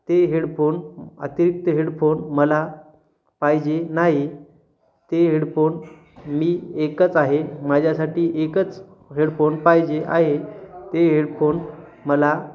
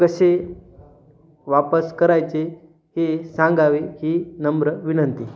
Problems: none marked